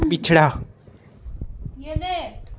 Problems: constant background noise